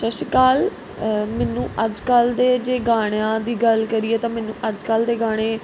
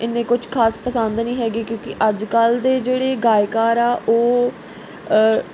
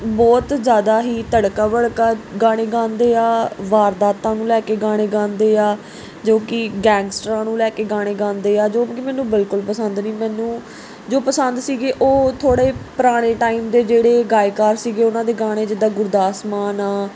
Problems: none marked